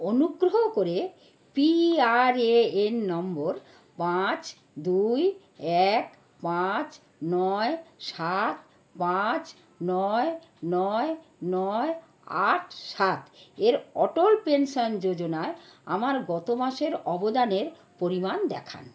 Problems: constant background noise